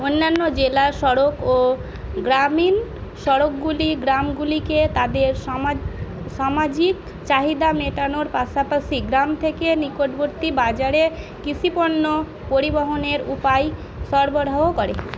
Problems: constant background noise